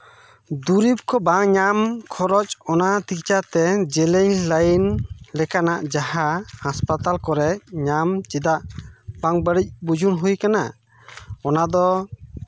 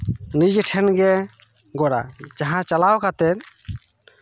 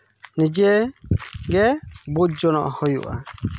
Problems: background sounds at intervals